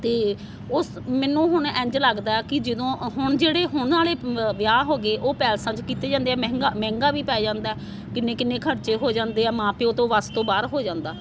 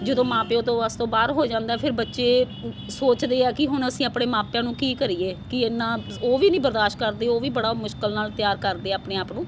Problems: constant background noise